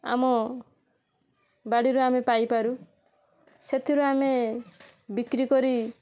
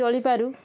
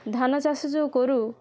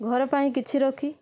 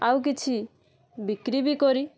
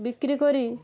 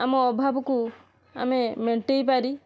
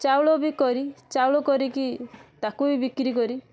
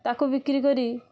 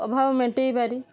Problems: constant background noise